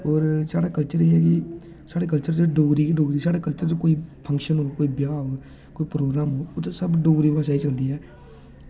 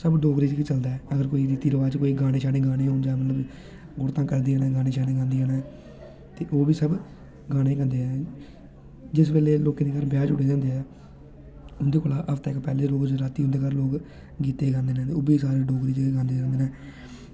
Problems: constant background noise